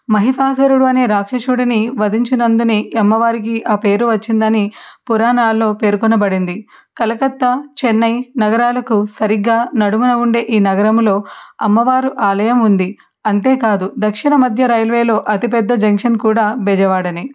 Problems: none marked